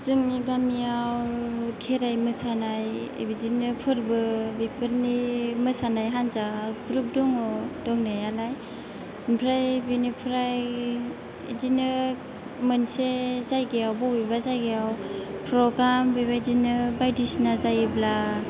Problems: background sounds at intervals